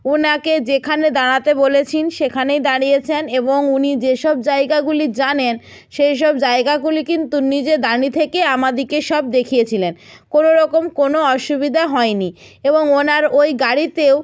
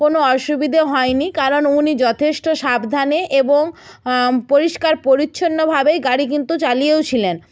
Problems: background sounds at intervals